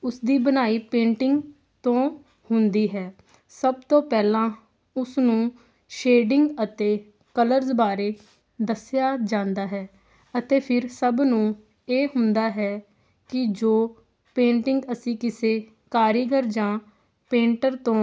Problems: constant background noise